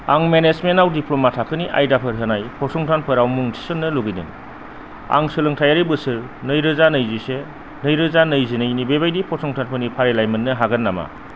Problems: constant background noise